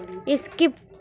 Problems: none marked